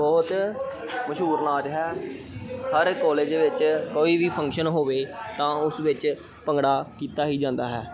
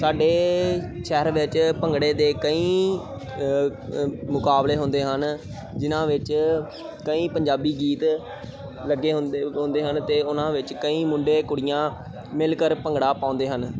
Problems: continuous background conversations